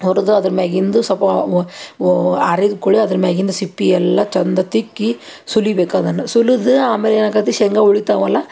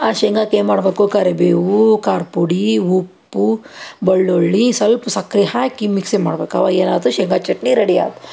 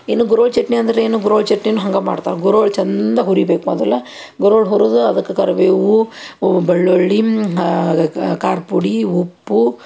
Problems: none marked